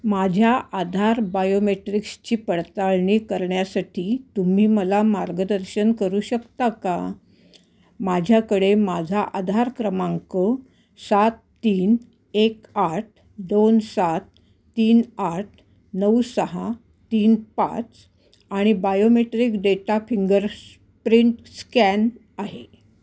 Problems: background sounds at intervals, background conversations at intervals